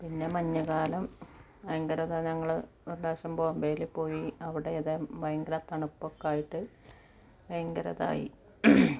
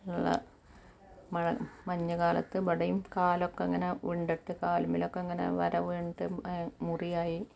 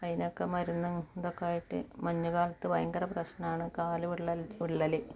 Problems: background sounds at intervals